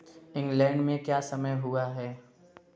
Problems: constant background noise